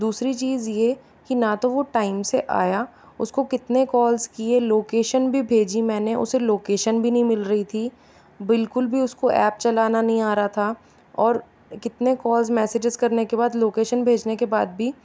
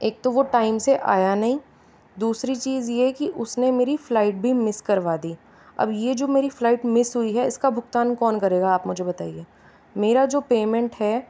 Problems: none marked